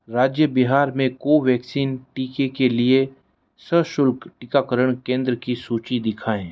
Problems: none marked